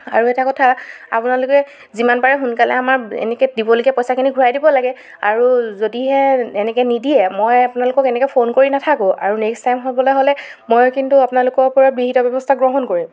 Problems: background sounds at intervals, background conversations at intervals